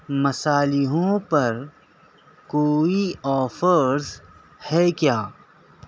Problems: none marked